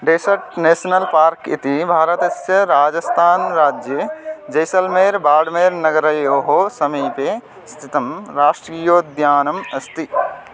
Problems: background sounds at intervals